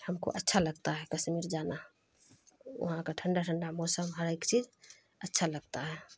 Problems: constant background noise